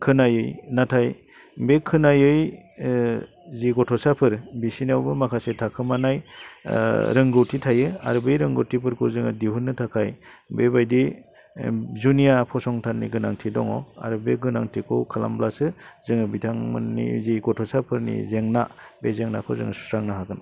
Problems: low volume